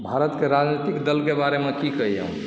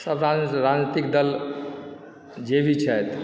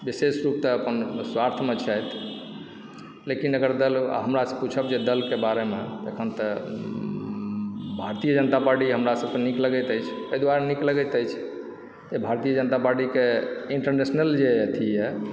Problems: background sounds at intervals, low volume